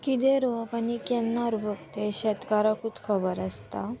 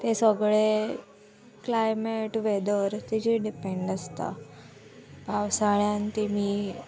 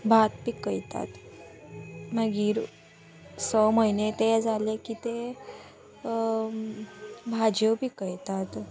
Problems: constant background noise